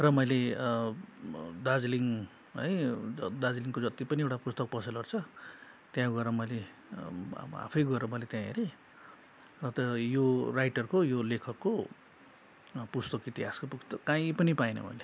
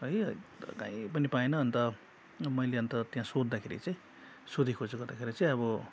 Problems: constant background noise